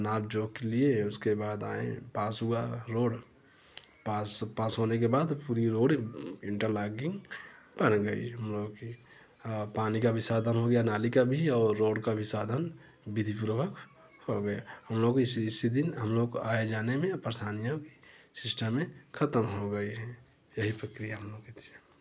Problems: constant background noise